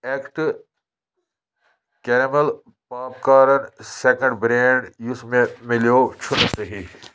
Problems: constant background noise